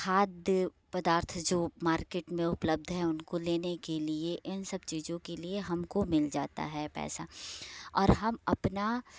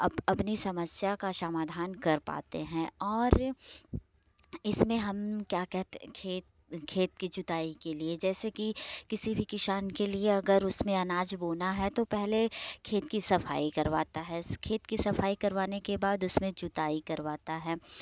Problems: none marked